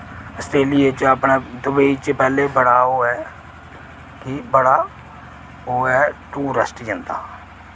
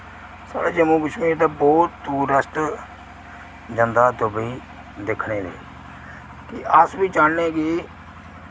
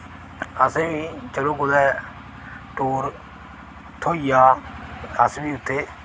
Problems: none marked